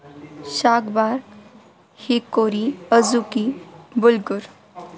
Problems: constant background noise